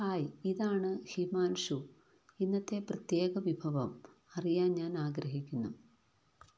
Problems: low volume